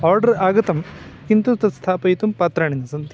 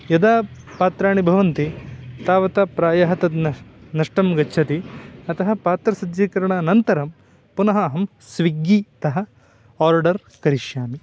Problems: constant background noise, continuous background conversations